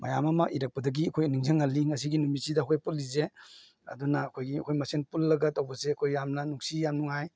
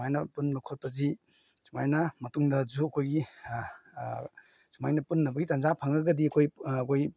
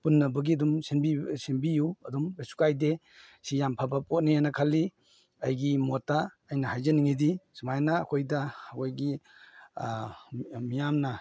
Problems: none marked